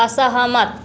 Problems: none marked